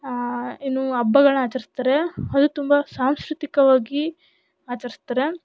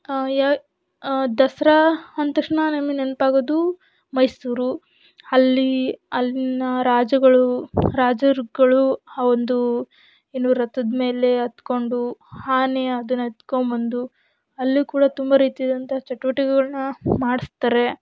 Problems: none marked